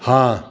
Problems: constant background noise